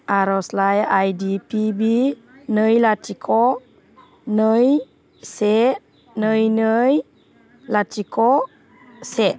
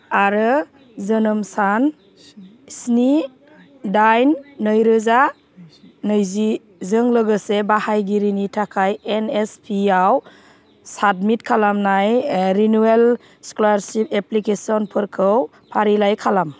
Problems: none marked